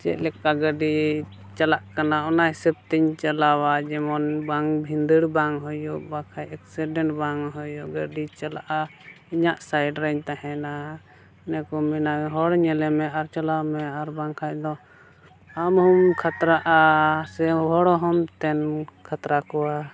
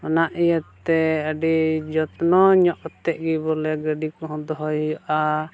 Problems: none marked